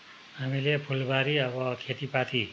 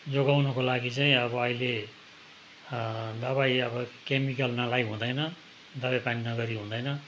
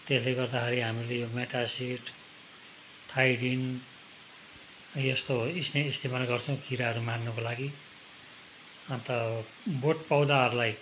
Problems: none marked